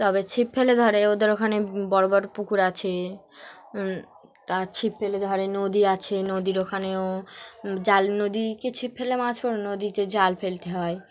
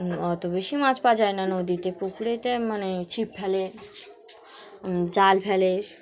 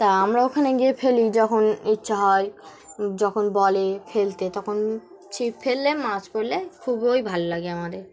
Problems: constant background noise, continuous background conversations